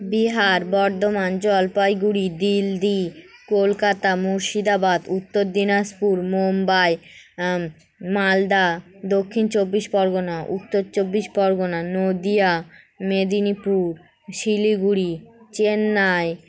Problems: none marked